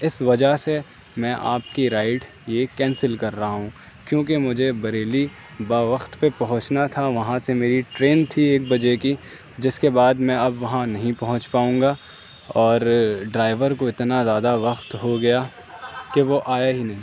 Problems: constant background noise